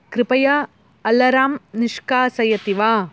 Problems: constant background noise